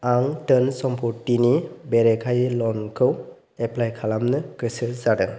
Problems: none marked